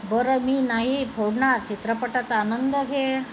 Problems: constant background noise